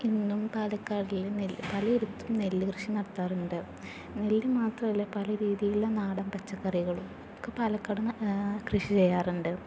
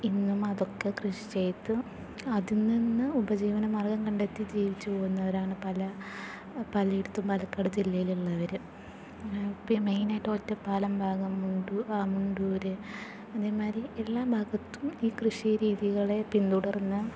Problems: background sounds at intervals, low volume